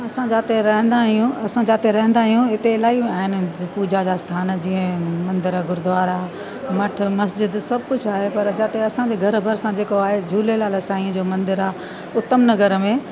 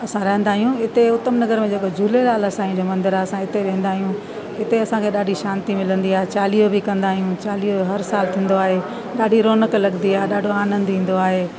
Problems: constant background noise